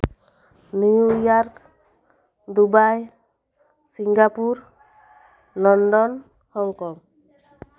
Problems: none marked